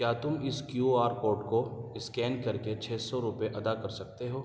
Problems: none marked